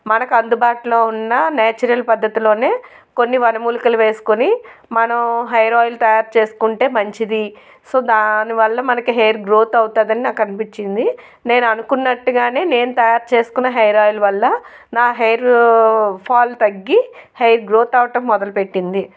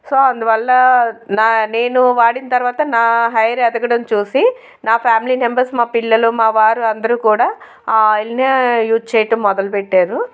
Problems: none marked